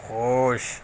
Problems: constant background noise